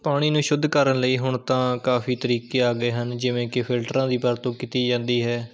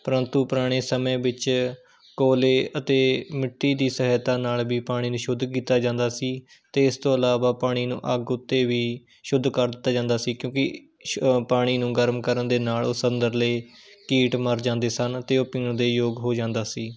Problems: background sounds at intervals